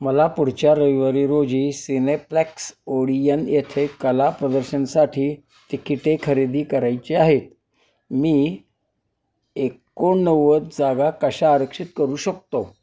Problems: none marked